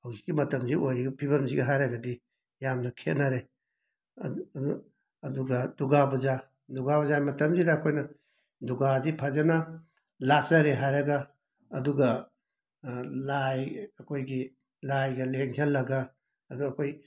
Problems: background sounds at intervals